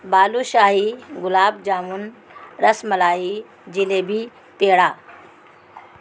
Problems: constant background noise